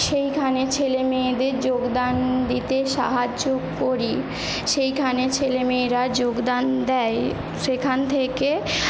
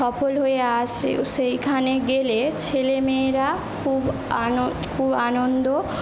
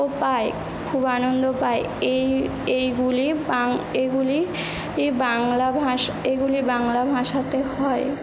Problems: none marked